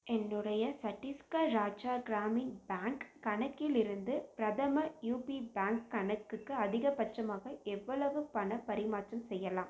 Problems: none marked